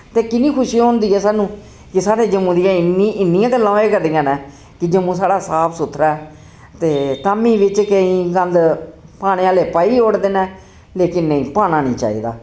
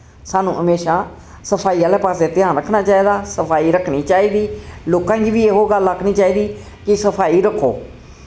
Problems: constant background noise